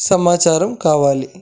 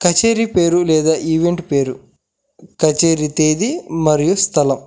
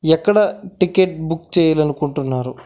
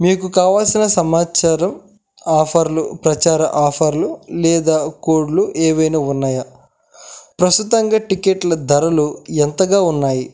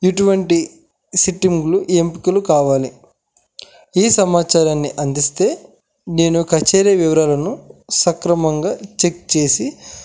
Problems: none marked